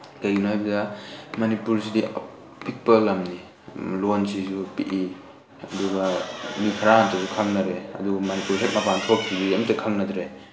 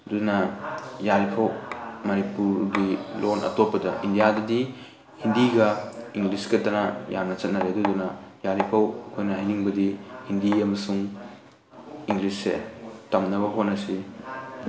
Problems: constant background noise, background conversations at intervals